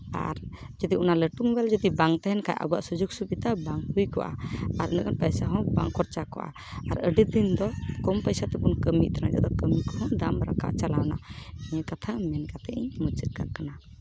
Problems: background sounds at intervals